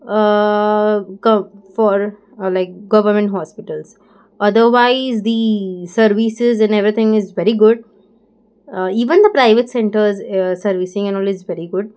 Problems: background sounds at intervals